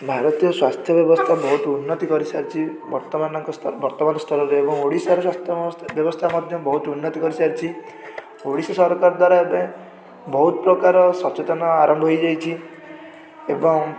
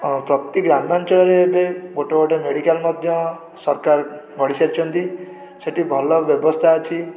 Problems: background sounds at intervals, continuous background conversations